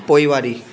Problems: constant background noise